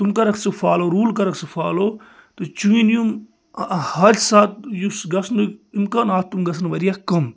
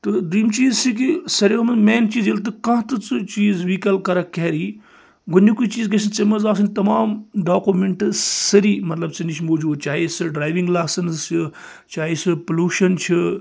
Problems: none marked